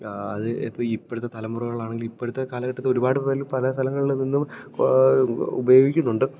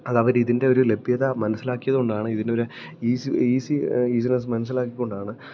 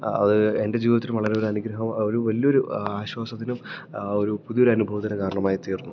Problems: low volume